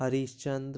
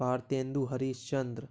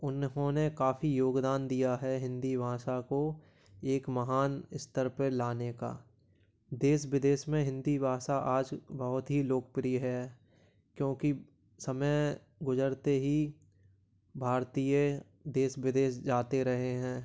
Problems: background sounds at intervals